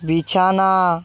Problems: none marked